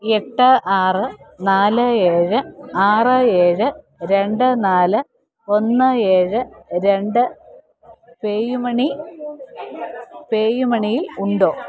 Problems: none marked